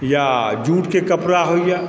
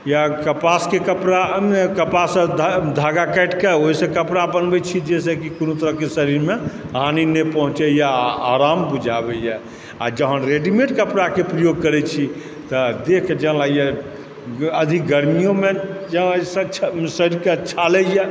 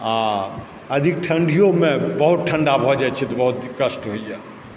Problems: background sounds at intervals, background conversations at intervals